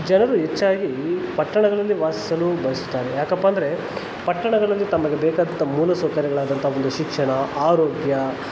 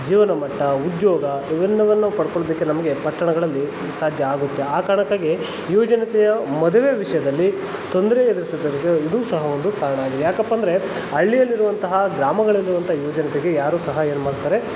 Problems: constant background noise